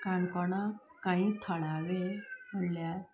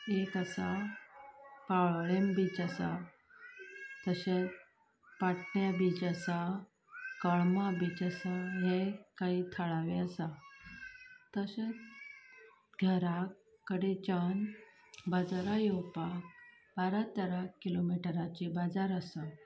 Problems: background conversations at intervals, low volume